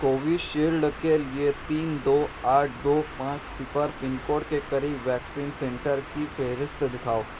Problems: constant background noise